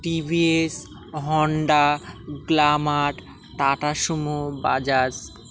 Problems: constant background noise